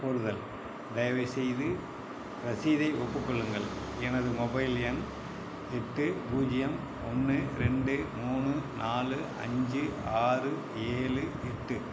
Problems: constant background noise